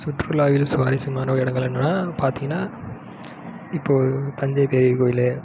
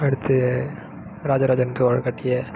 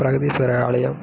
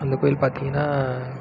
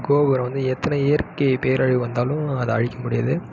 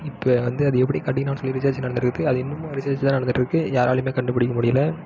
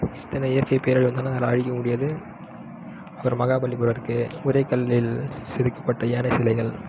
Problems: none marked